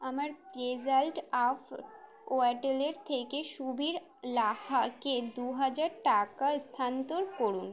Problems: background sounds at intervals